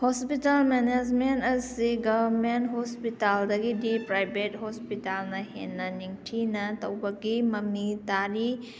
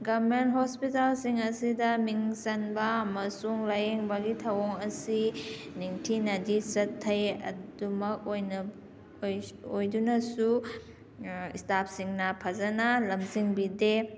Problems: background sounds at intervals